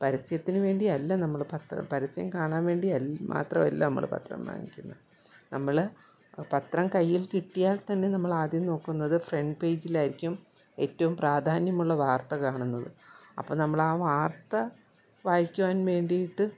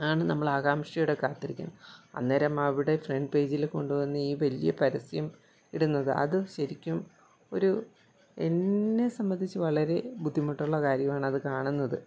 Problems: none marked